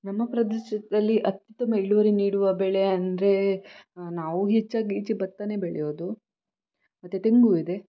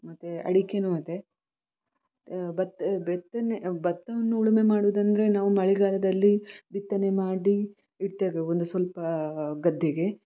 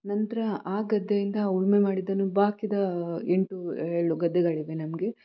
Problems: background sounds at intervals